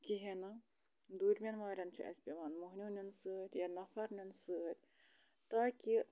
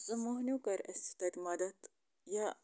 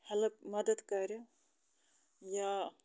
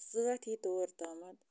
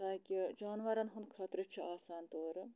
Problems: low volume